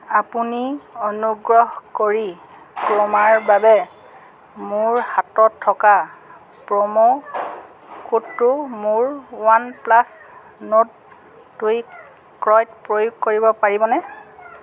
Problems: background sounds at intervals